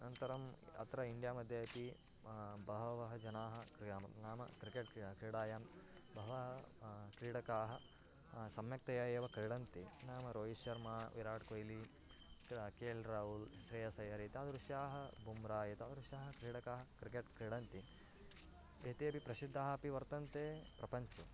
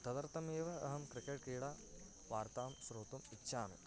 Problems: none marked